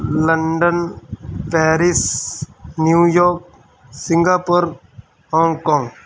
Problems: none marked